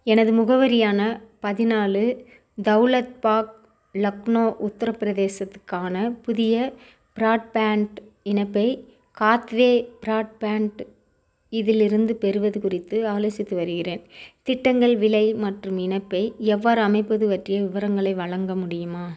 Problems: none marked